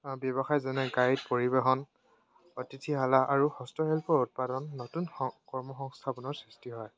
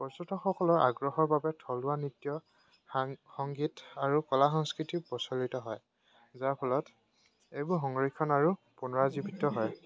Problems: none marked